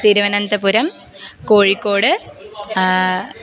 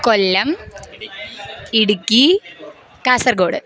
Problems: background sounds at intervals